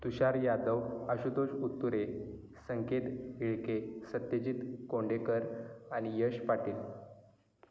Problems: constant background noise